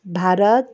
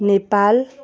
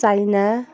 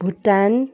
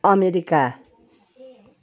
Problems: continuous background conversations